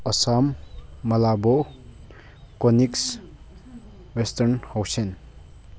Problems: background sounds at intervals